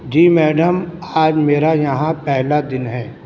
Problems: constant background noise